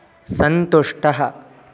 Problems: none marked